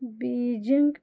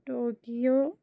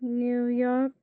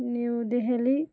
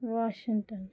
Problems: low volume